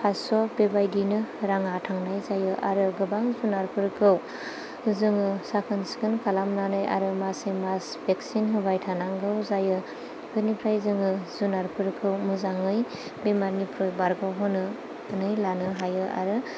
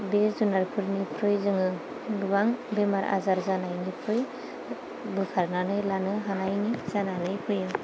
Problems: low volume